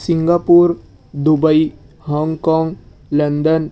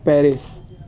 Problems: background sounds at intervals